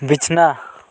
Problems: none marked